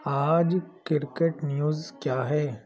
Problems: constant background noise